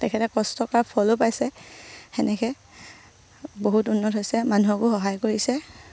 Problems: low volume